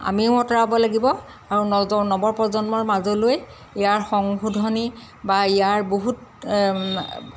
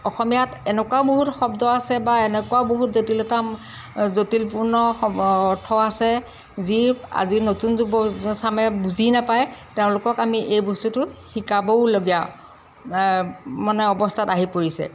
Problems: constant background noise